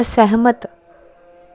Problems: background sounds at intervals